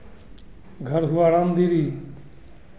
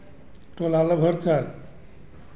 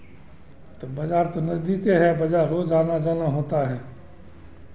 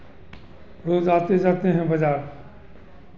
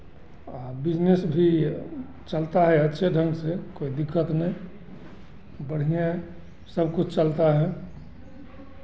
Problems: constant background noise, continuous background conversations